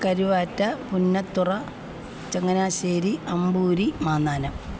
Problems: constant background noise